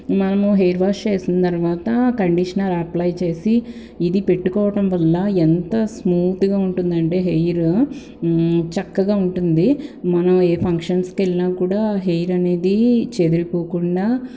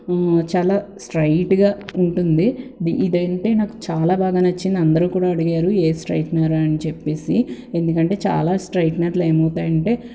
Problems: constant background noise